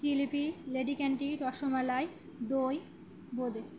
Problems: constant background noise